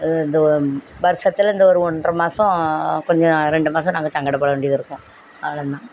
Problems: background sounds at intervals